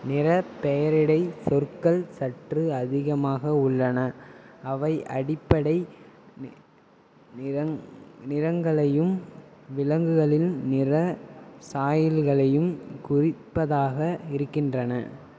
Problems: constant background noise